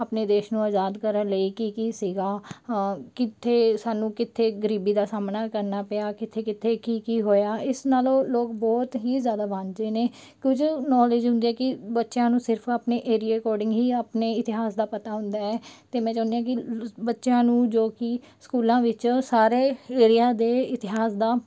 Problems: none marked